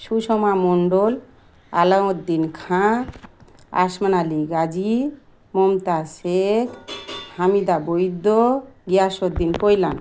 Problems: none marked